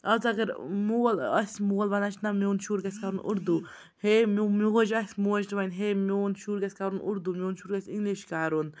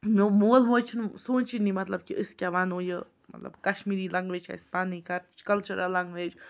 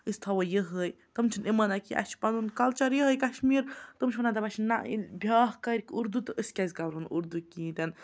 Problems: background conversations at intervals